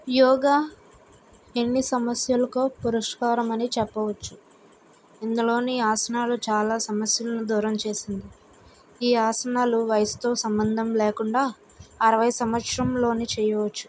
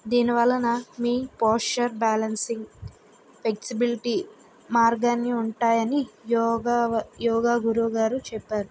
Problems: none marked